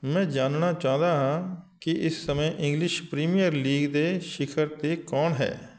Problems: none marked